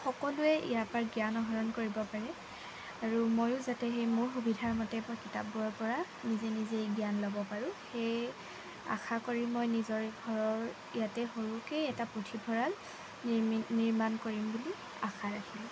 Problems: constant background noise